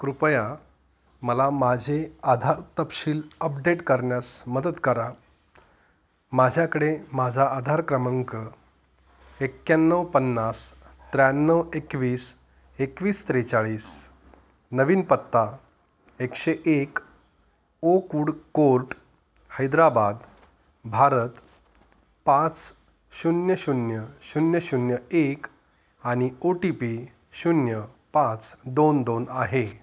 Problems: constant background noise